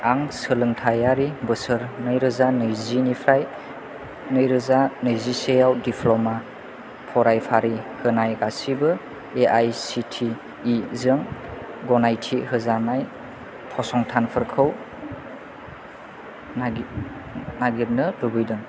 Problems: none marked